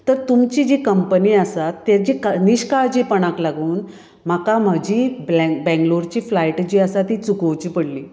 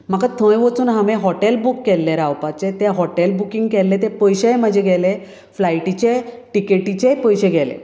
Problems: none marked